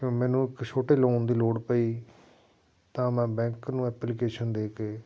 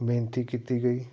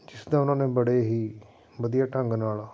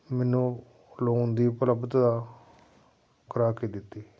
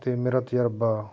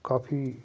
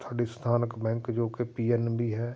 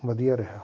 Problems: background sounds at intervals